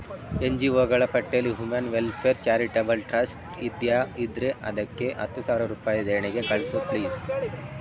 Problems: constant background noise